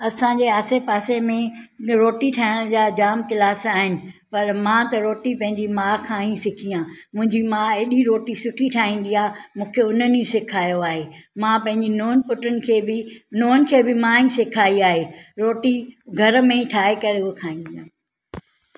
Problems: none marked